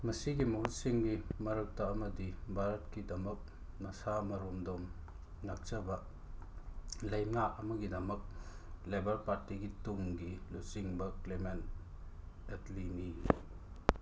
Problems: constant background noise